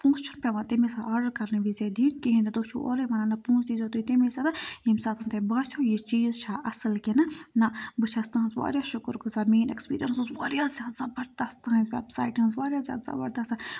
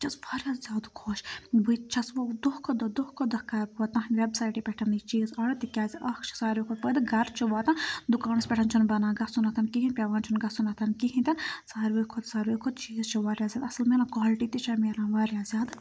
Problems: background sounds at intervals